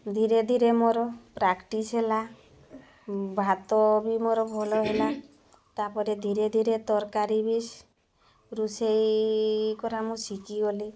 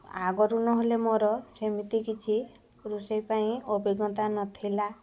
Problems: none marked